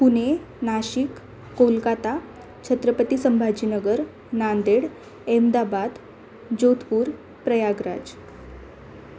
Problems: none marked